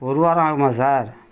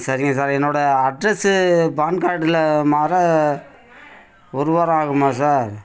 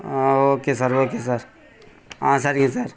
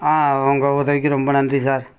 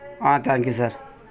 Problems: background conversations at intervals